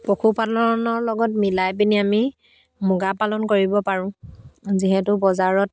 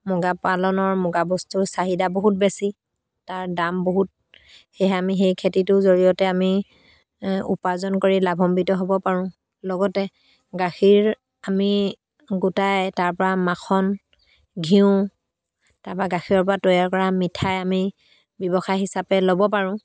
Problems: background sounds at intervals